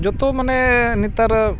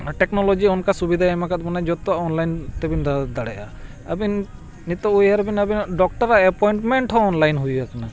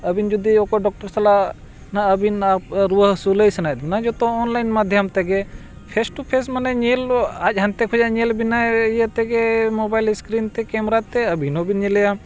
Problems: background sounds at intervals